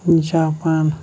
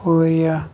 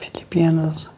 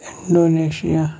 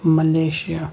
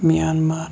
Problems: background sounds at intervals